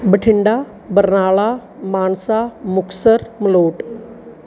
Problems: background sounds at intervals